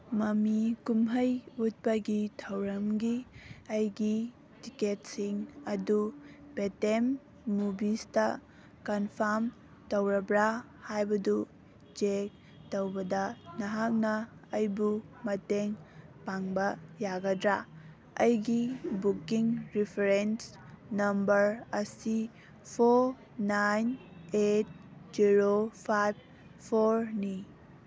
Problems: background sounds at intervals